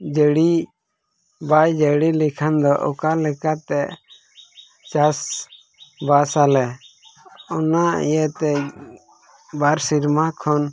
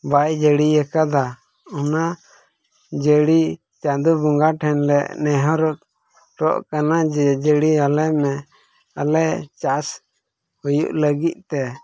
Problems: background sounds at intervals, low volume